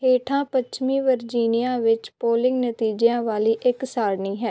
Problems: none marked